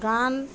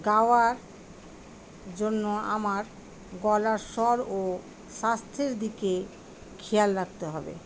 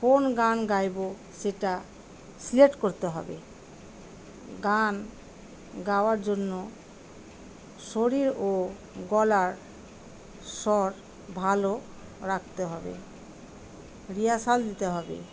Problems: constant background noise